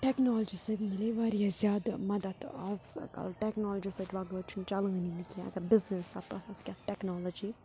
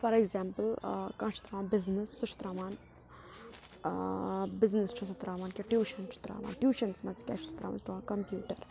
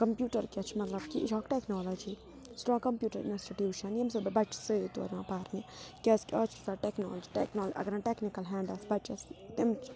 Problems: background conversations at intervals